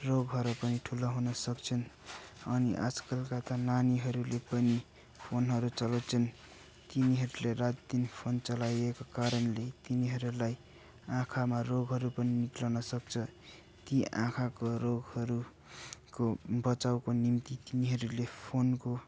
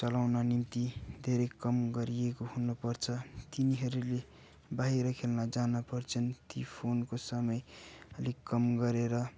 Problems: constant background noise, background conversations at intervals